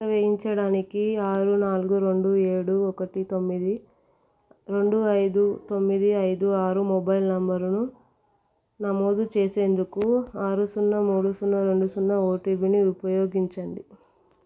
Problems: none marked